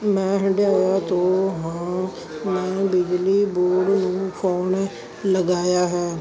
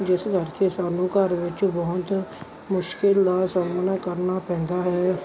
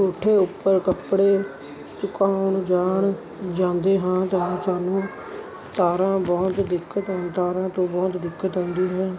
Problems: constant background noise